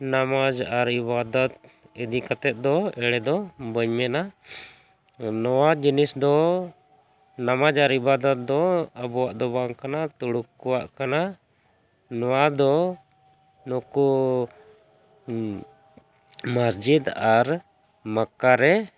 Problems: constant background noise